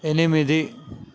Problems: constant background noise